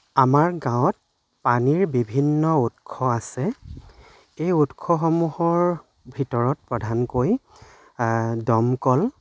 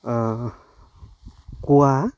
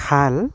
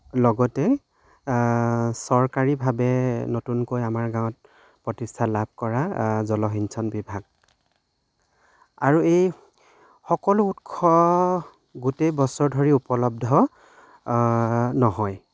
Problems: background sounds at intervals